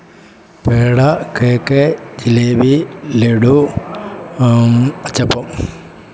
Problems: none marked